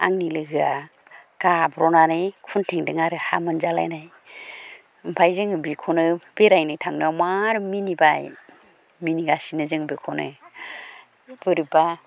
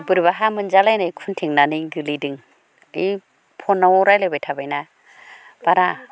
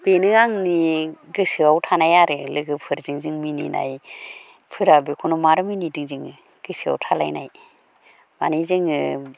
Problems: background conversations at intervals